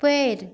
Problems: constant background noise